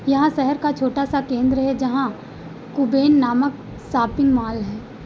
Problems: background sounds at intervals